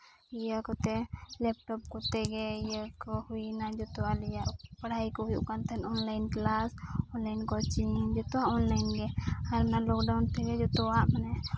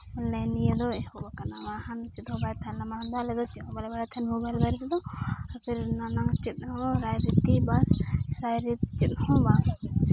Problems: constant background noise